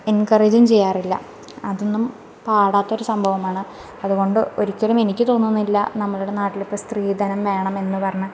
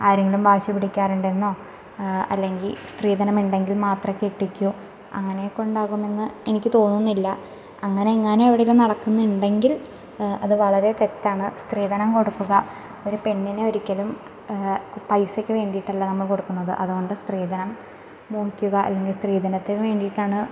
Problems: background sounds at intervals